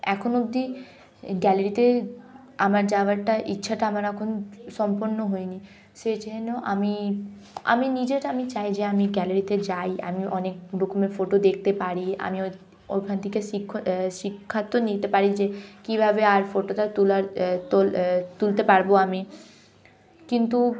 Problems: background sounds at intervals, background conversations at intervals